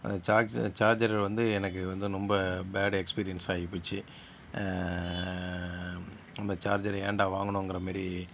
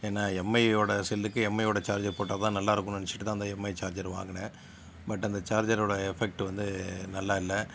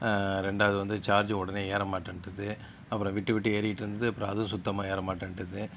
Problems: background sounds at intervals